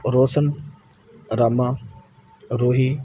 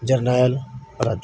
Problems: none marked